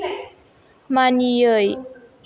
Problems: background conversations at intervals